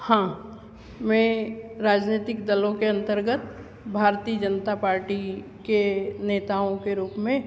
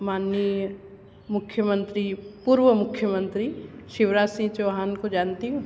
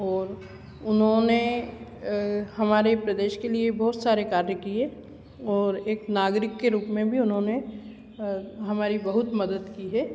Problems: none marked